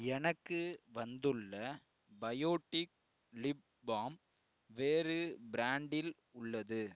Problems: none marked